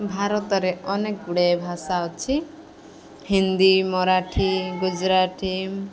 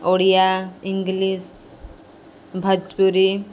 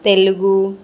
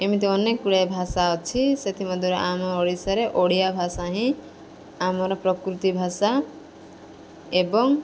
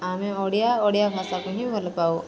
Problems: constant background noise